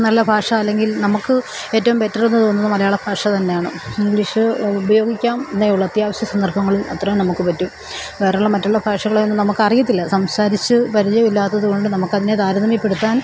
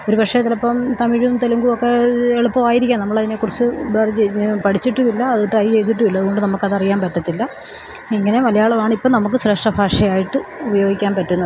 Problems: constant background noise